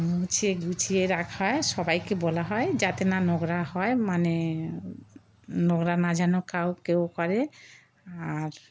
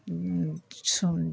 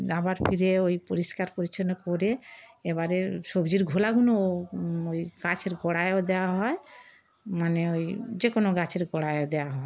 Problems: background sounds at intervals